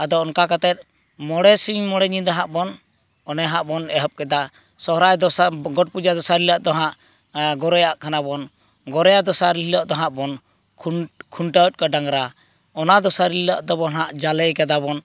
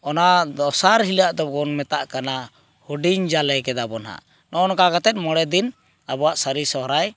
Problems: constant background noise